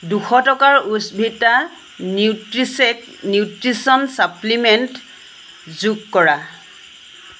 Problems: constant background noise